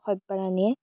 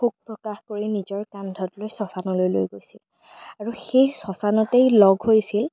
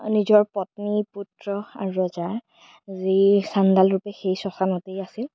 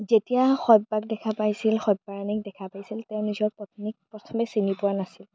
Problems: none marked